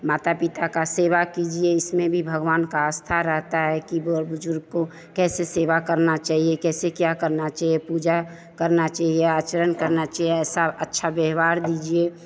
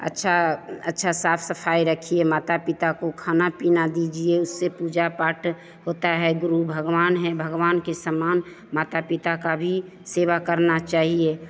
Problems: constant background noise, background conversations at intervals